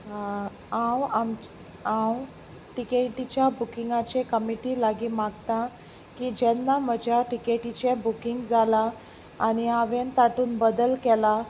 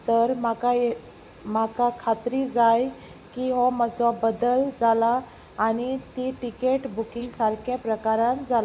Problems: background sounds at intervals